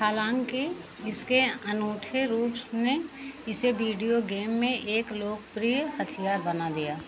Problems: none marked